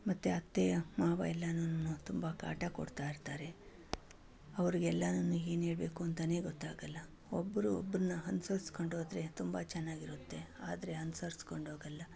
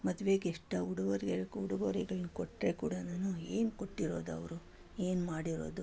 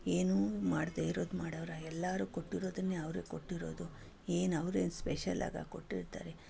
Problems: none marked